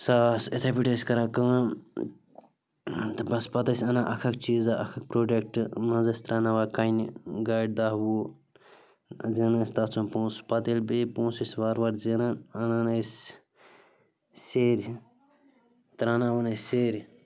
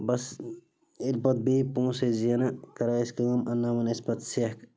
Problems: constant background noise